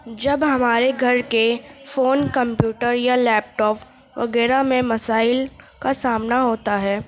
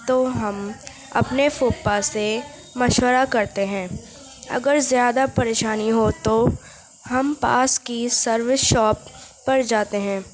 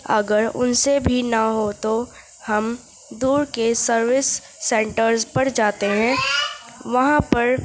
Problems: constant background noise, background conversations at intervals